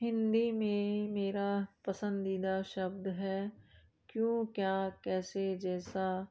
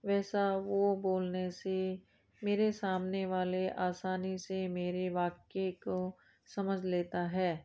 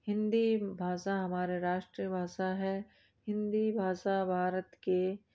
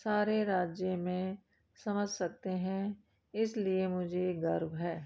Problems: background sounds at intervals